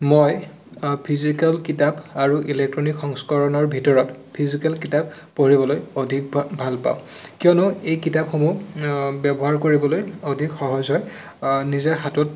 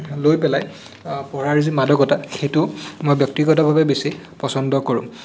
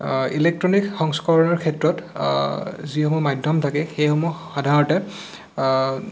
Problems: constant background noise